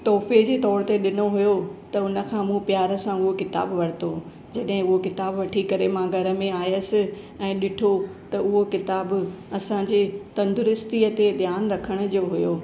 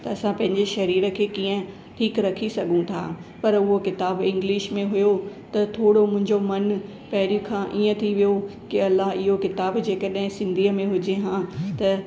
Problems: constant background noise